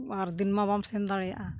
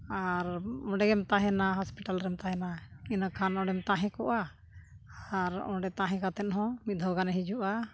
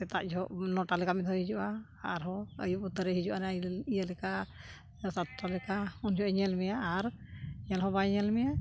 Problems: background sounds at intervals